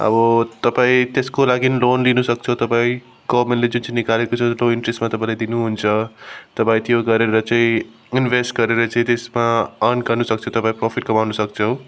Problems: background sounds at intervals